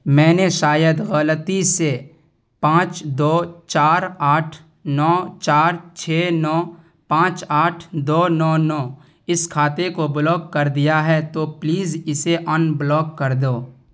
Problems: none marked